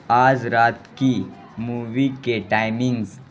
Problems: constant background noise